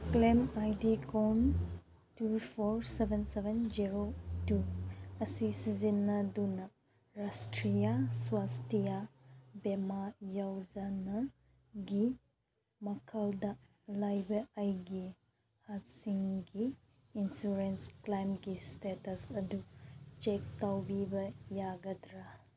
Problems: background sounds at intervals